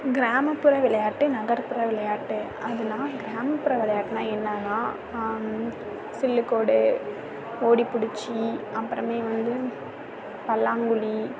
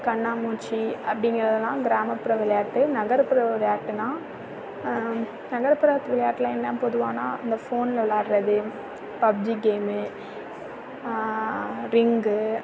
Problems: none marked